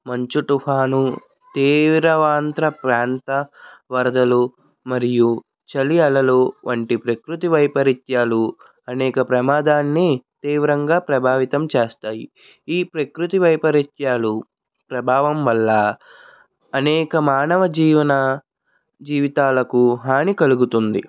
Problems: none marked